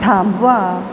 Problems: constant background noise